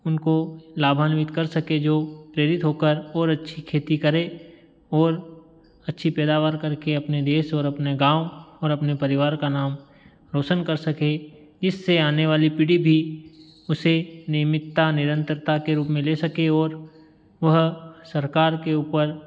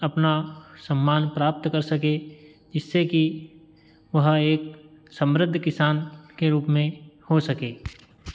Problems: background sounds at intervals